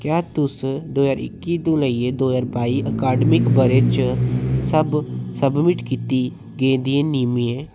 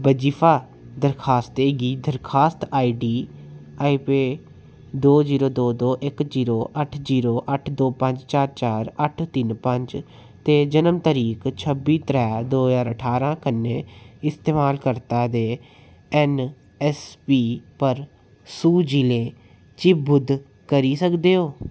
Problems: background sounds at intervals